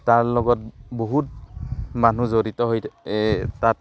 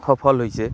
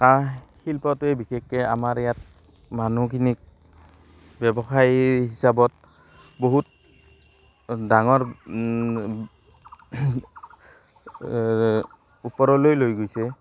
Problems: constant background noise, background conversations at intervals